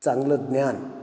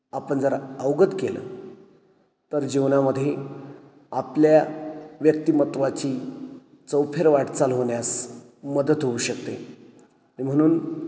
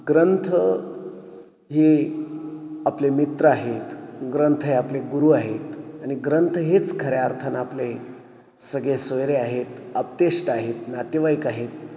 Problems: none marked